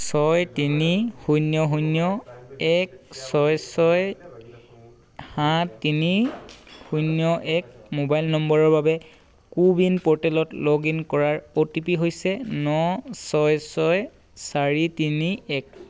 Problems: constant background noise